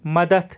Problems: none marked